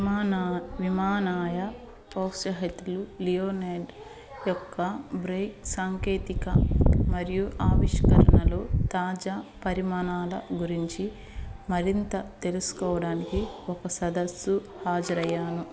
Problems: background sounds at intervals, background conversations at intervals